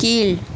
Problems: constant background noise